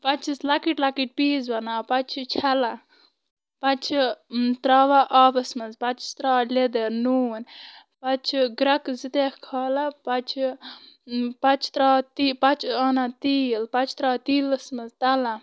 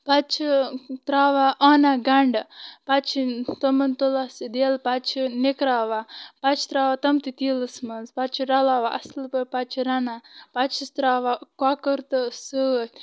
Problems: constant background noise